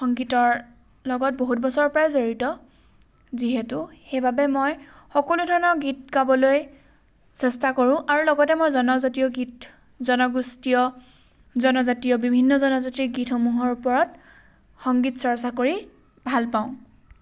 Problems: background sounds at intervals